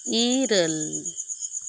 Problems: constant background noise